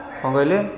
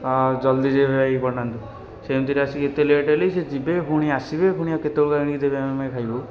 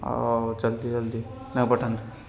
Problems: constant background noise, continuous background conversations